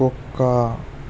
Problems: constant background noise